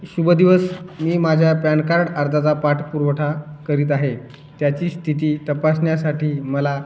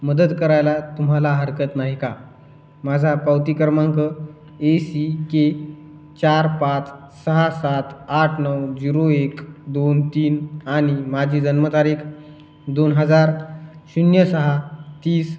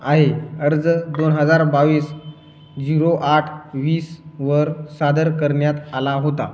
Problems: none marked